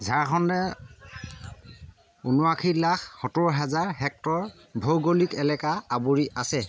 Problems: constant background noise